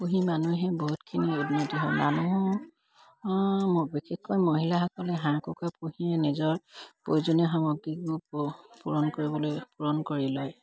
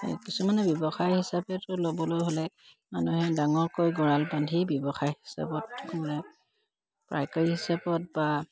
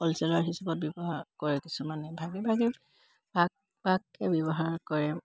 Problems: none marked